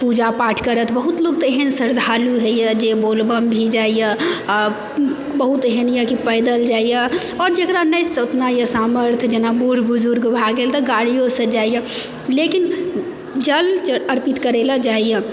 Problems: background sounds at intervals, background conversations at intervals